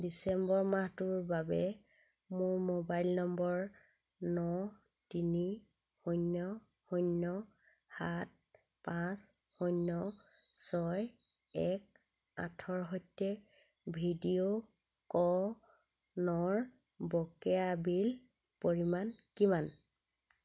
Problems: constant background noise